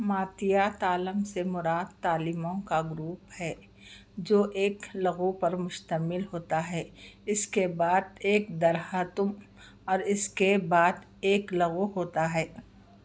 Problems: none marked